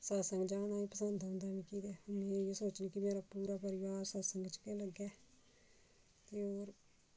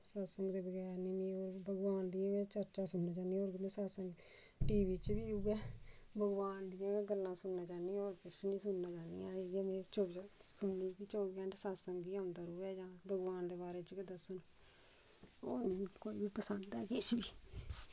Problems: low volume